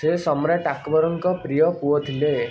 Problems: constant background noise